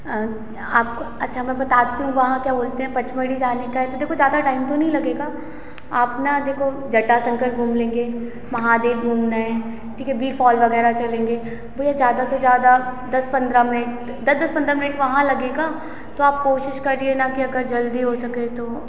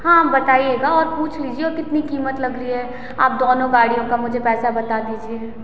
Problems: constant background noise, echo